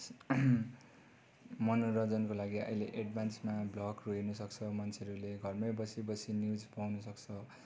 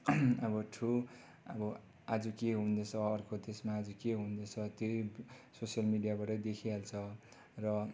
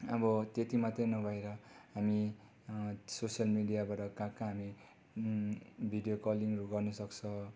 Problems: low volume